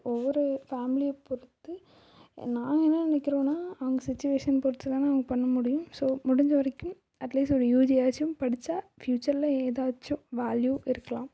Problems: none marked